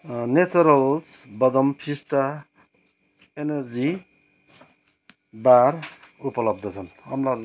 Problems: background conversations at intervals